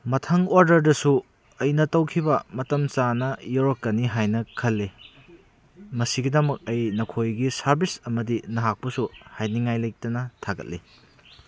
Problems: background sounds at intervals